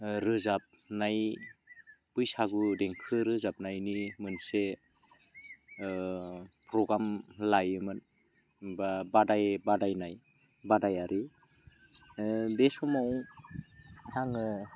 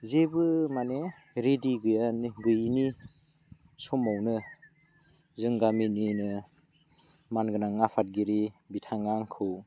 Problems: low volume